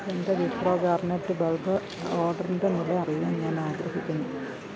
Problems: low volume